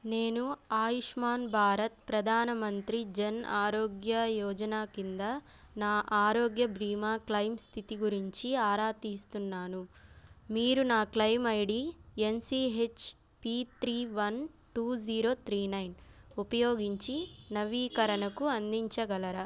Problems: none marked